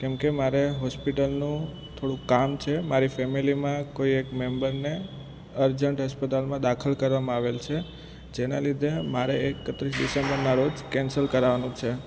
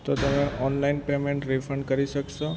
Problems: constant background noise